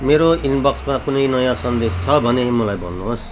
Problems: background sounds at intervals